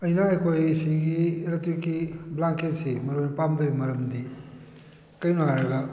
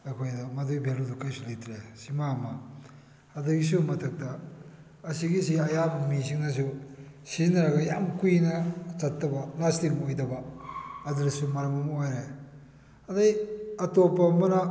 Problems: background sounds at intervals